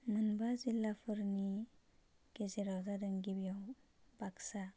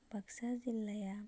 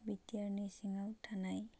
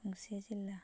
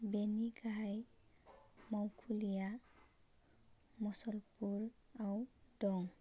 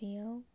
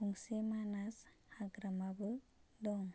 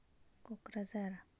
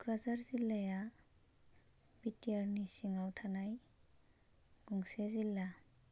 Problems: none marked